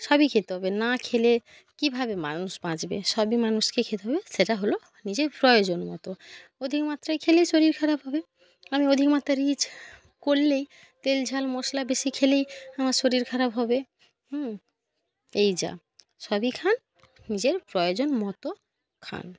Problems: none marked